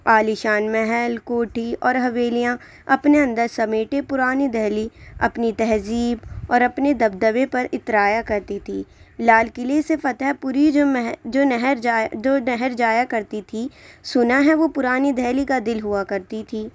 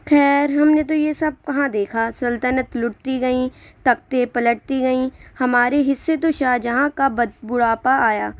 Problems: none marked